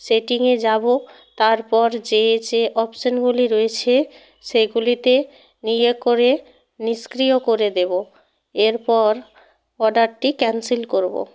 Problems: constant background noise